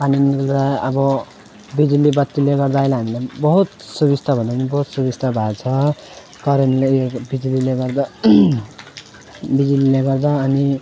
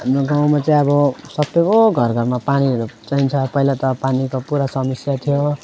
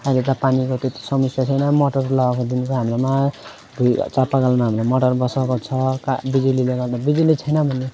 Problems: constant background noise